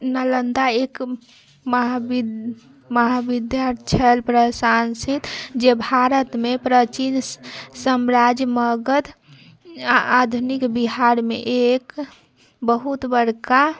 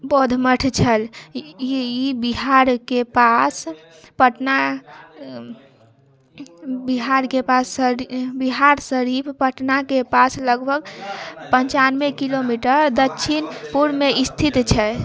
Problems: background sounds at intervals